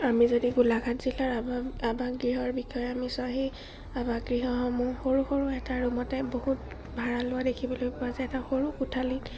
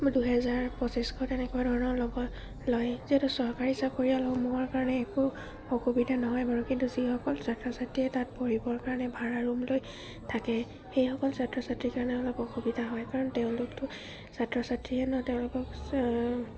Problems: constant background noise, low volume